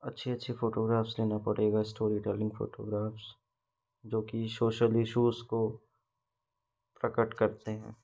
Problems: background sounds at intervals